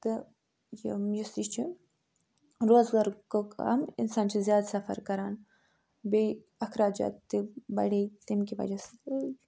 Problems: none marked